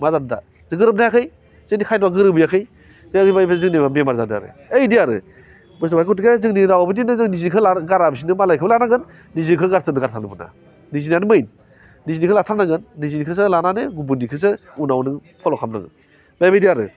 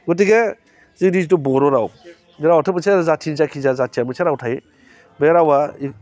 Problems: constant background noise